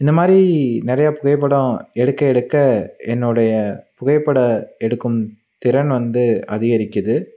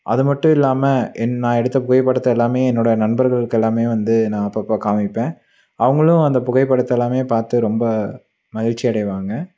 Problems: none marked